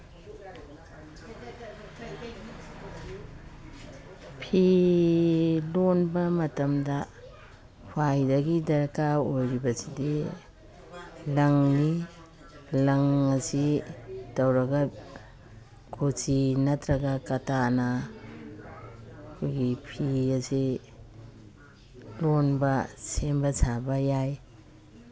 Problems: background sounds at intervals, background conversations at intervals